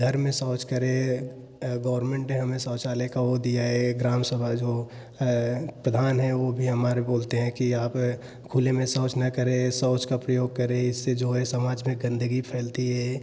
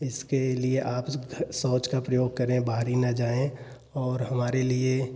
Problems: none marked